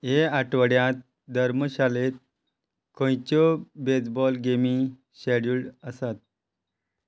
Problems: none marked